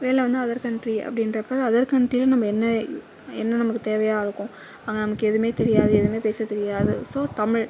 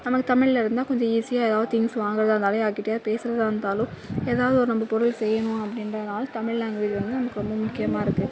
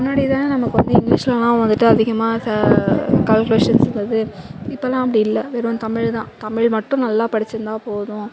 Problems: background sounds at intervals, background conversations at intervals